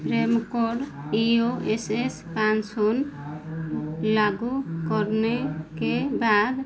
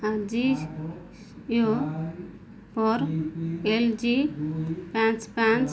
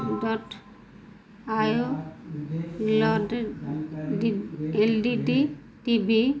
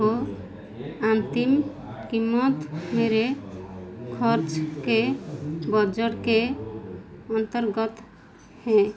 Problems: none marked